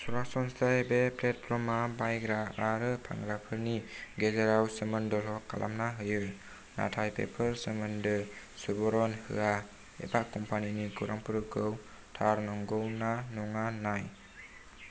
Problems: low volume